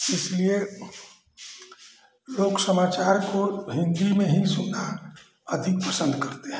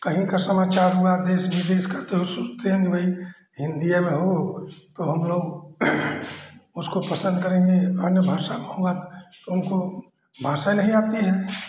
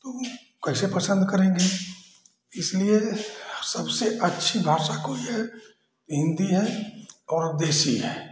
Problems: background sounds at intervals